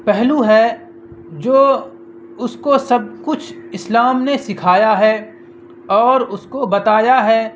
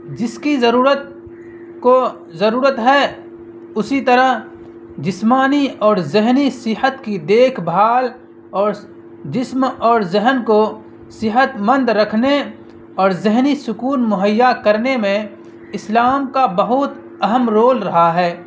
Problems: constant background noise